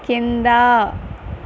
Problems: constant background noise